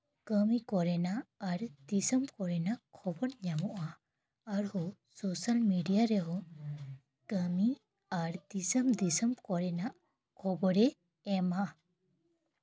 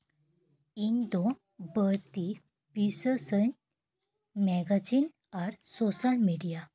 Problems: background conversations at intervals